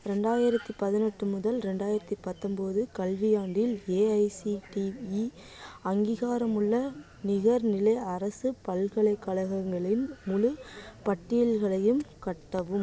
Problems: constant background noise, background conversations at intervals